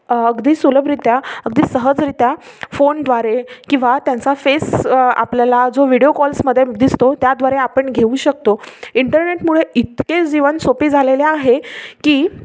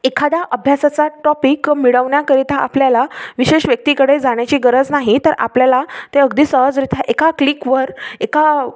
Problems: none marked